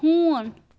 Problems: constant background noise